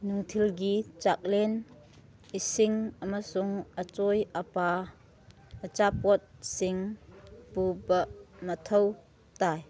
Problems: background sounds at intervals